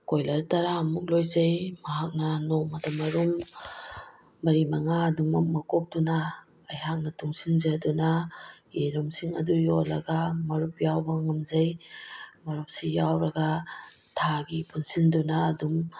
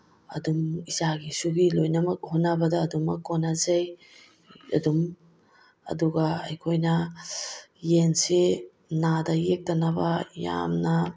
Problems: background sounds at intervals